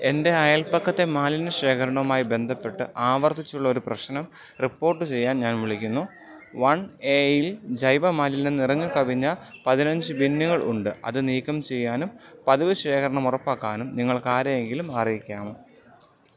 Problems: background sounds at intervals